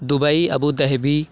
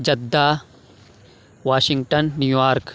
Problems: constant background noise